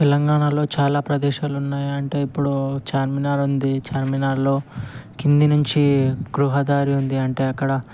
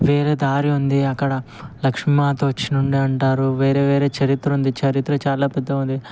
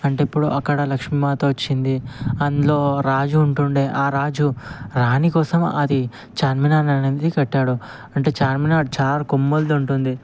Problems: constant background noise